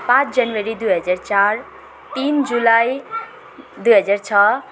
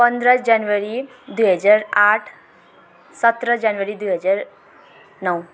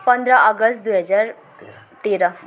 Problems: background sounds at intervals